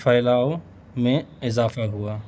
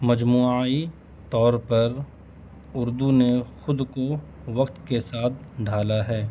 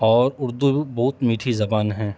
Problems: constant background noise